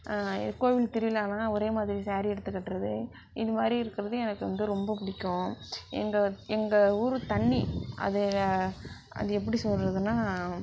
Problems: background sounds at intervals